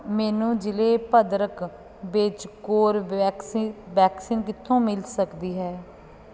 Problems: constant background noise